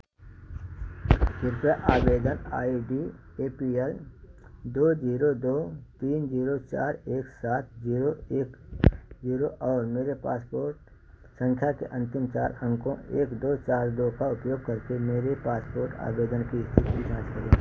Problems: none marked